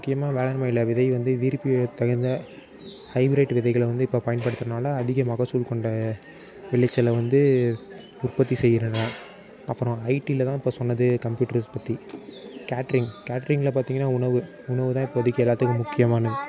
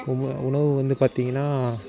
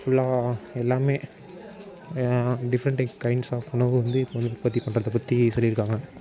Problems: constant background noise